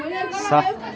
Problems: constant background noise, background conversations at intervals